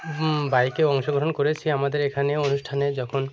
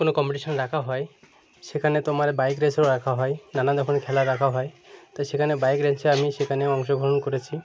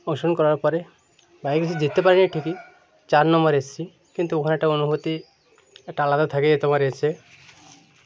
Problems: none marked